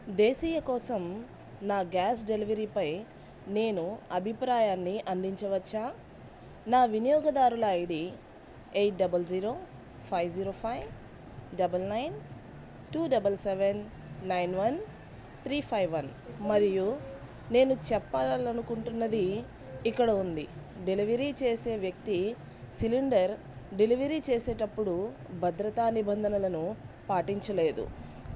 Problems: constant background noise